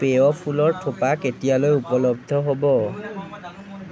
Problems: background conversations at intervals